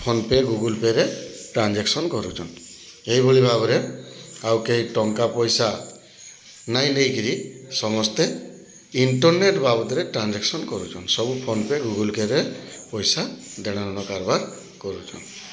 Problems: none marked